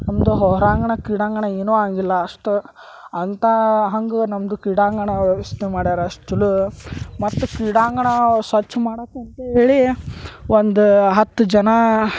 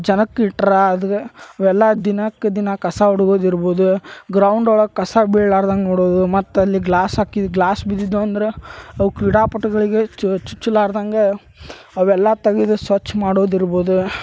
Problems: background sounds at intervals